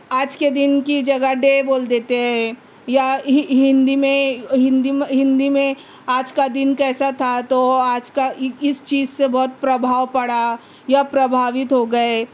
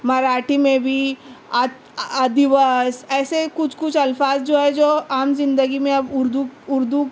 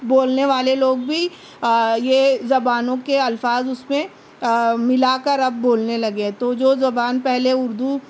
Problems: none marked